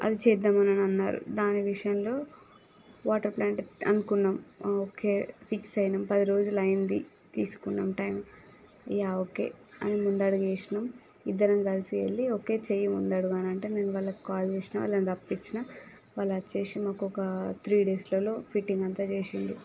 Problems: none marked